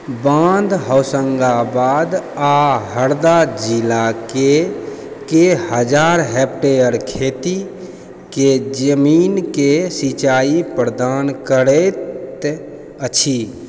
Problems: constant background noise